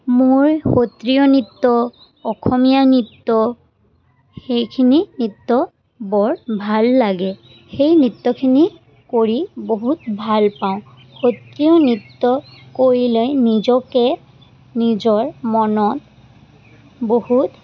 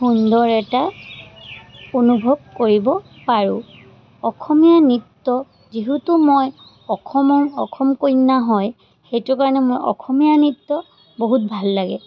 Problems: constant background noise